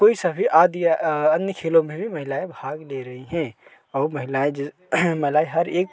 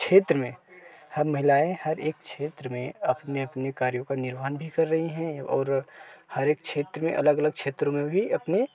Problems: none marked